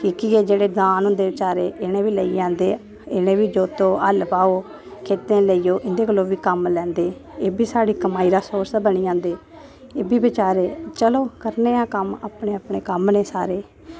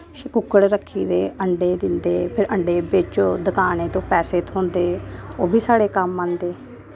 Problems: none marked